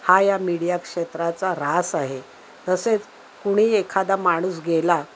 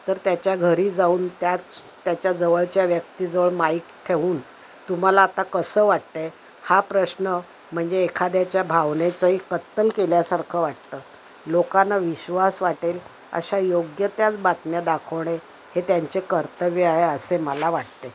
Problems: constant background noise